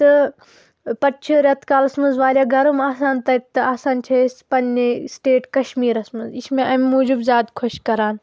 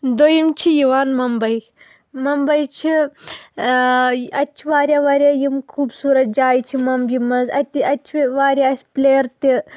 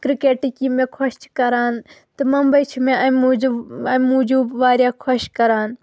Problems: constant background noise